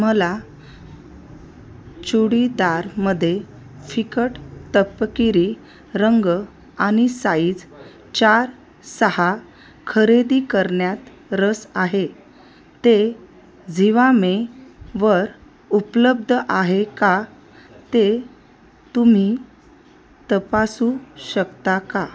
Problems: constant background noise, continuous background conversations